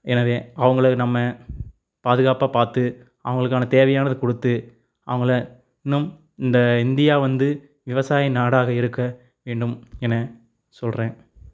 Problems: none marked